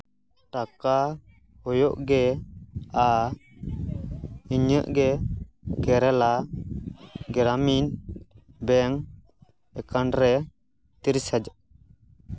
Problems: background sounds at intervals